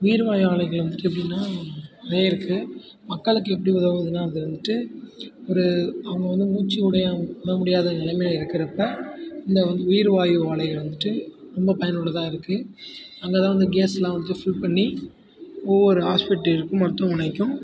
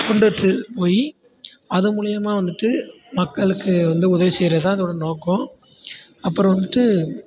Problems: background conversations at intervals, low volume